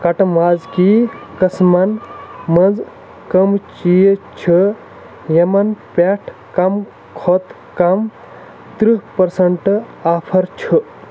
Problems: constant background noise